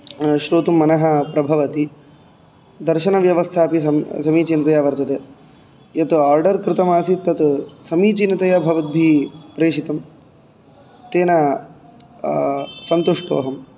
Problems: background sounds at intervals